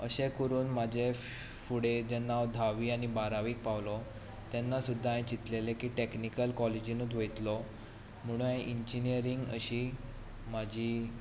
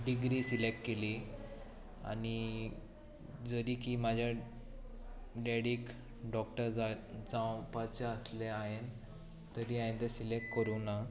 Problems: none marked